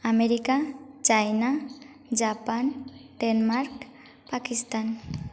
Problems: constant background noise, echo